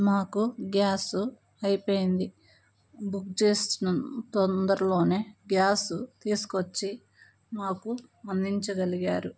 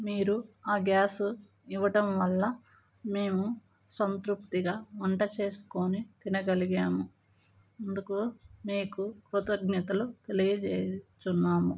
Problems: none marked